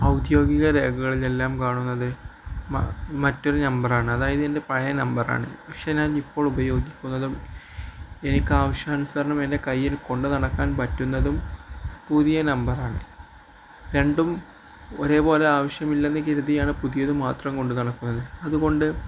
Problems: none marked